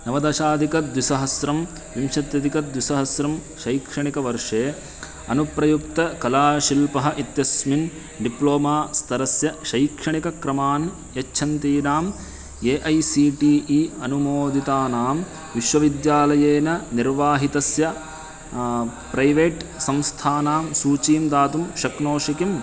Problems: constant background noise, continuous background conversations